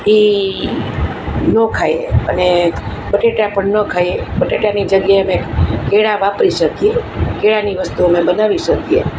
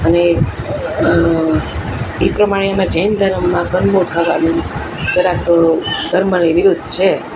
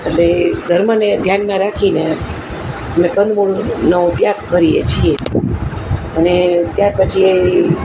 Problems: constant background noise